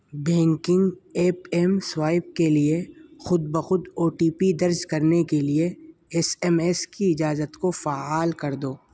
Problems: constant background noise